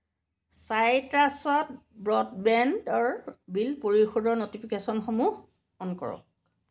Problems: none marked